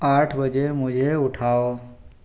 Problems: none marked